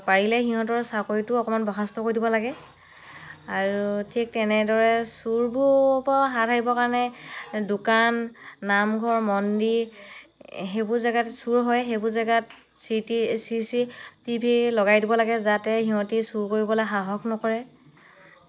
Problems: background sounds at intervals, background conversations at intervals